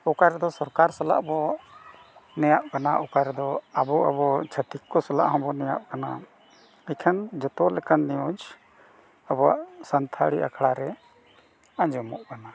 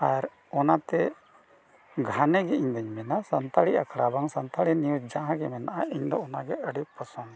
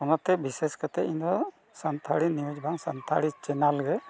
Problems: background sounds at intervals